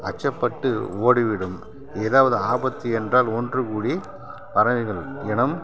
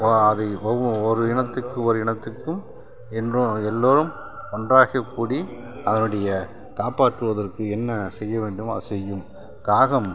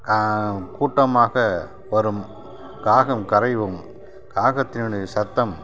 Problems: none marked